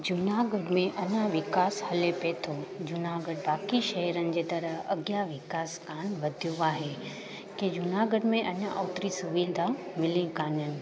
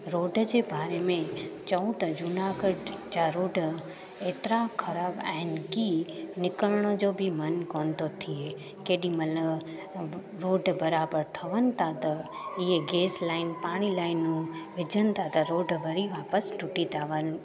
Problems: constant background noise